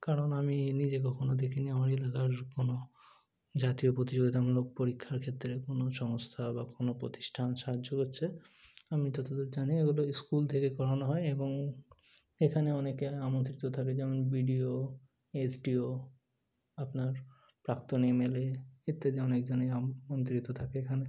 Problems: none marked